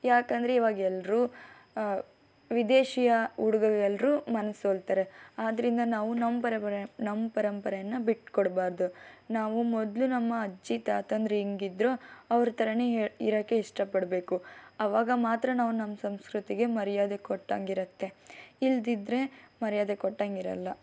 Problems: none marked